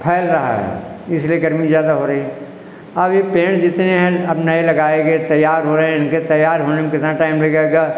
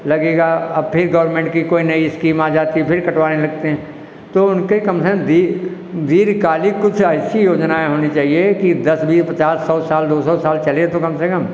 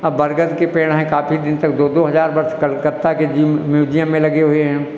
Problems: echo